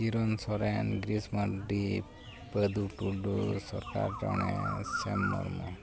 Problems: constant background noise, continuous background conversations